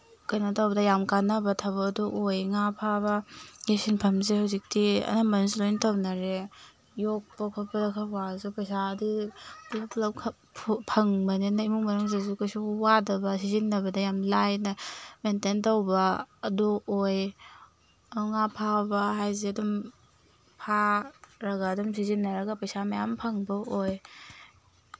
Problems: background sounds at intervals